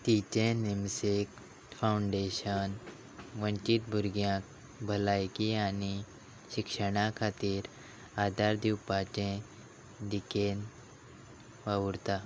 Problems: none marked